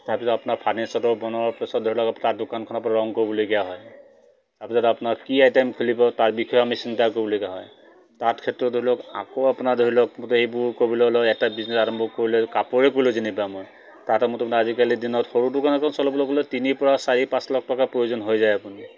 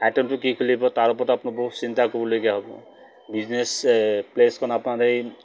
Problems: none marked